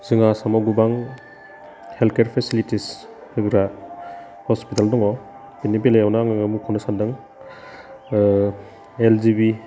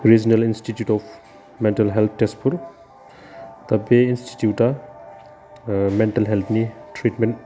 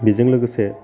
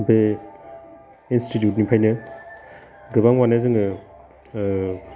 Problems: constant background noise